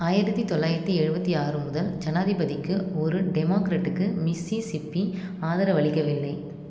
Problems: none marked